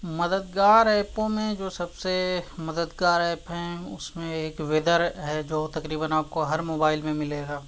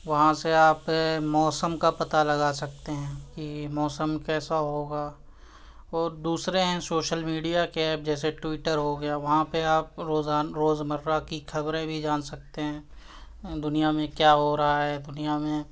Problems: constant background noise